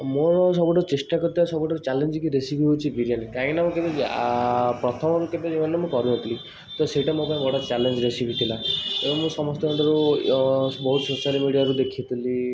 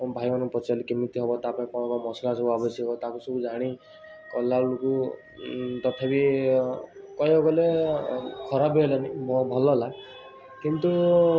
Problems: constant background noise